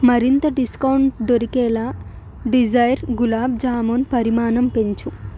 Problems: constant background noise